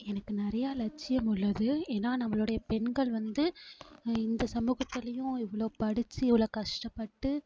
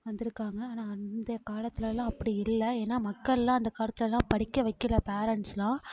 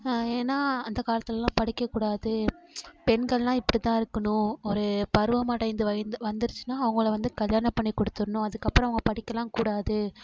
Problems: none marked